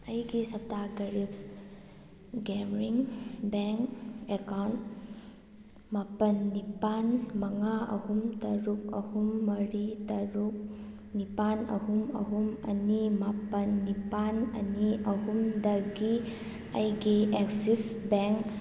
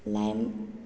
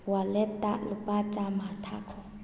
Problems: background sounds at intervals